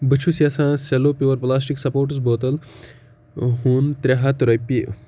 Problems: background sounds at intervals